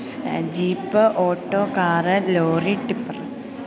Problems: continuous background conversations, low volume